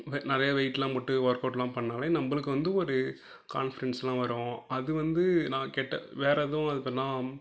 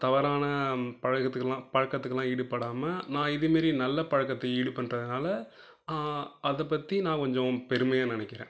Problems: none marked